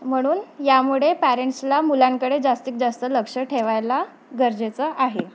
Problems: constant background noise, background conversations at intervals